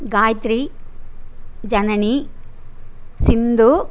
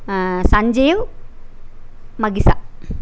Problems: none marked